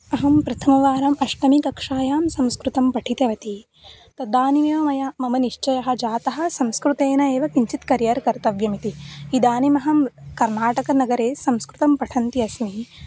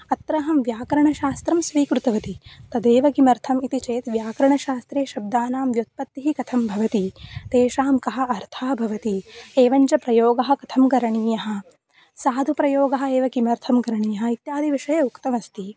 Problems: constant background noise